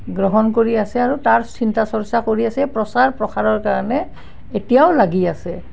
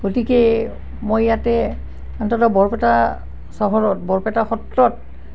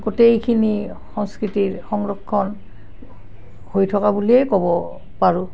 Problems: constant background noise